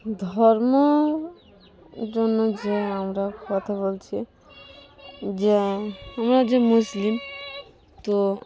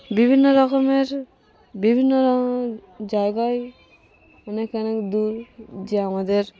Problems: none marked